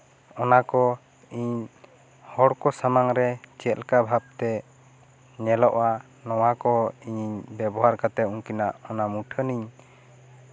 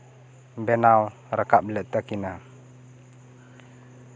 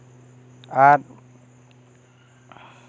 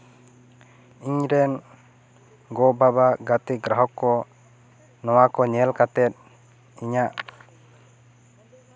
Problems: none marked